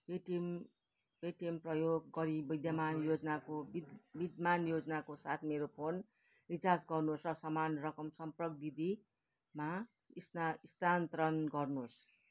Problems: none marked